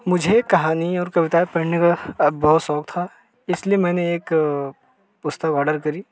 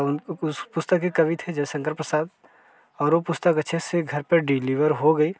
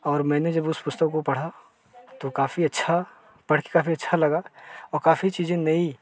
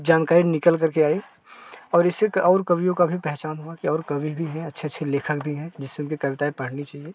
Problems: constant background noise